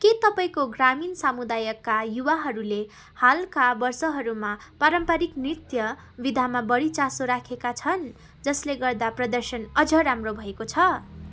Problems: constant background noise